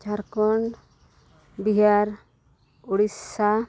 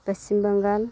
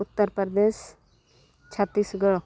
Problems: none marked